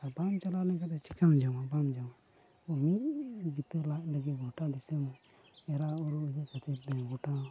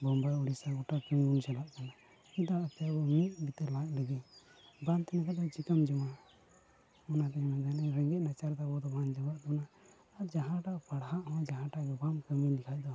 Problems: none marked